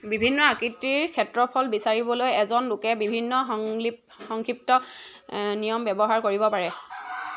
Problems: background sounds at intervals